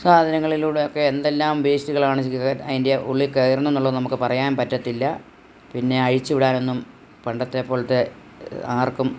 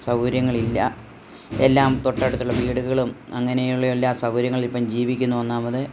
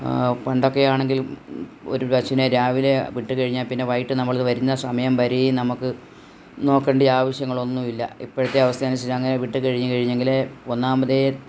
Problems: none marked